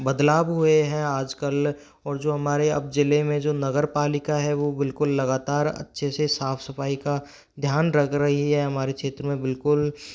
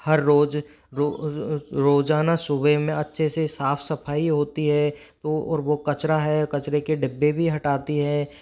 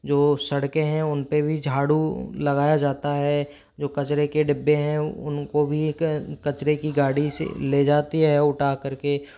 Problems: background sounds at intervals, background conversations at intervals